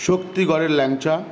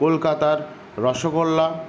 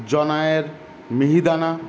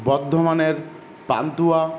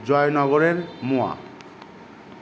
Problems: none marked